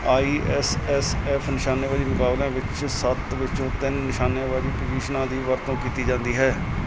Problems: background sounds at intervals